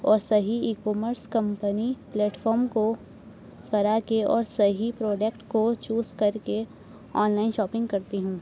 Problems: constant background noise, low volume